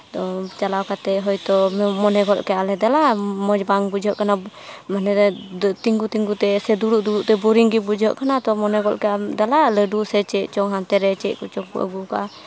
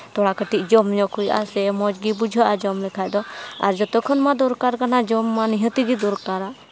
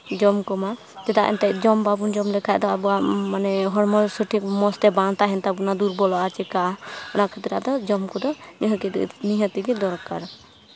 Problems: background sounds at intervals, background conversations at intervals